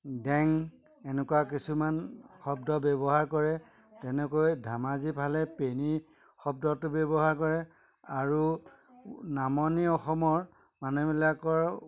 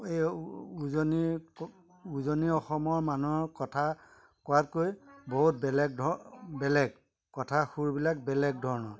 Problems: constant background noise, background conversations at intervals